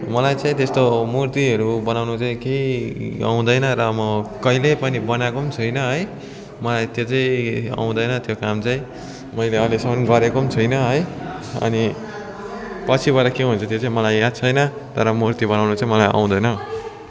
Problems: constant background noise, continuous background conversations